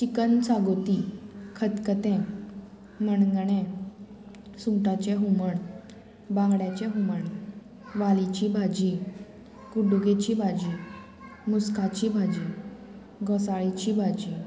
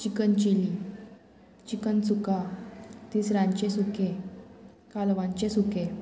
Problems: constant background noise